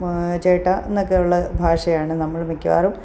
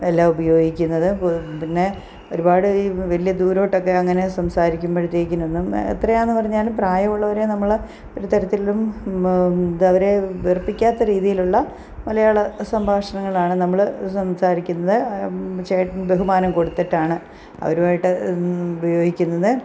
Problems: background sounds at intervals